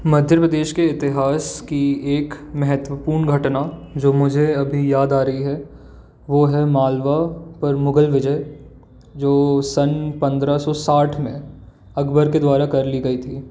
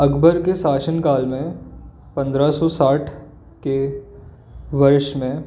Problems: constant background noise